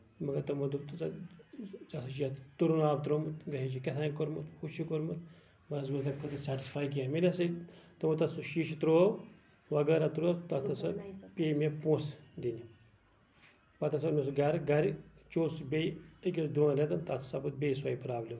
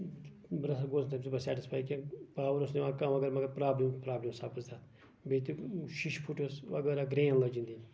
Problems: background sounds at intervals, background conversations at intervals